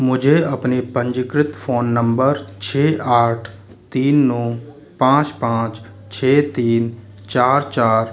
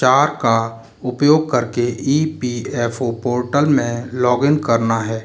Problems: constant background noise